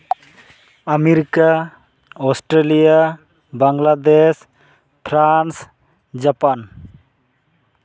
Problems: none marked